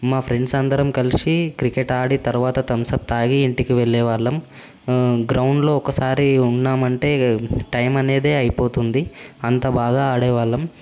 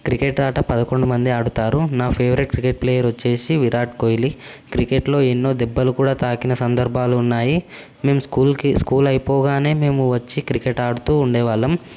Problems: constant background noise